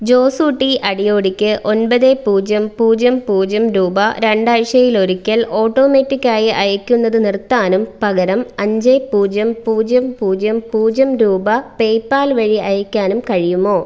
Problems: none marked